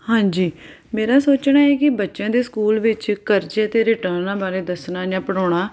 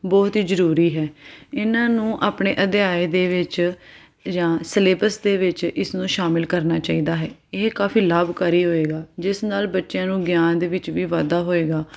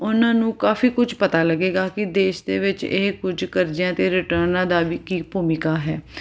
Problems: none marked